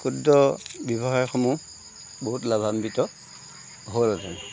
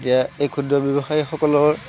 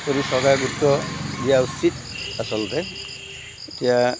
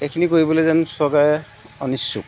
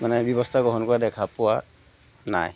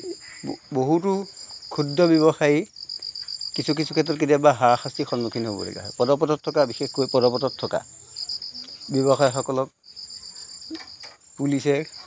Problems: background sounds at intervals